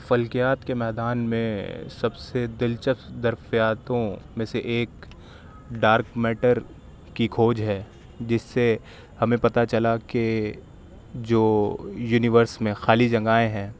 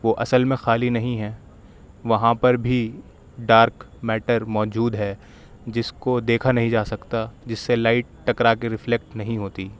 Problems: none marked